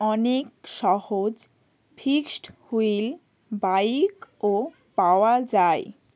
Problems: constant background noise, background conversations at intervals